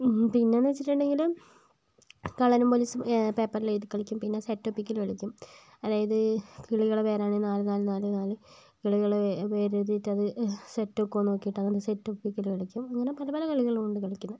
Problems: low volume